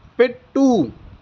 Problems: none marked